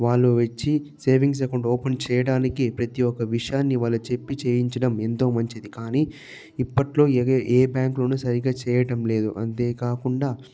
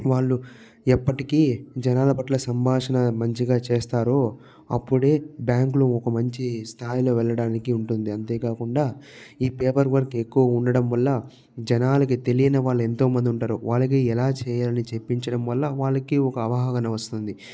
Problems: low volume